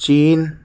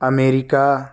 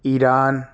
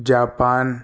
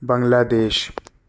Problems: none marked